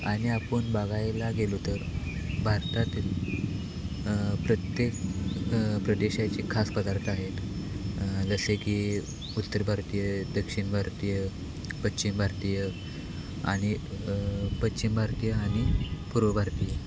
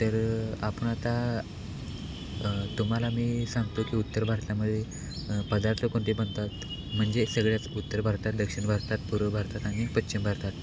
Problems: none marked